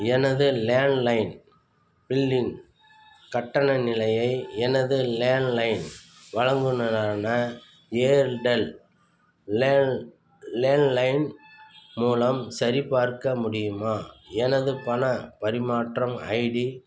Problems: constant background noise